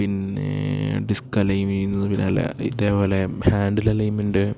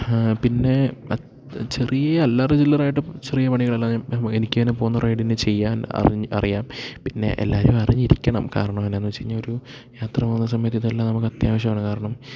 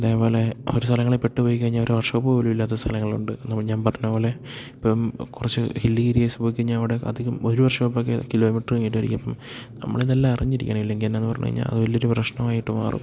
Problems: none marked